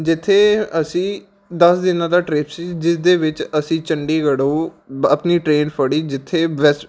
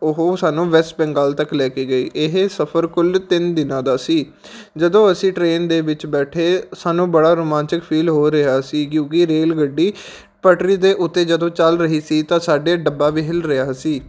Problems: background sounds at intervals